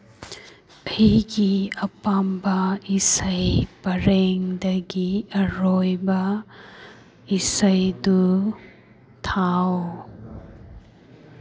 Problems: none marked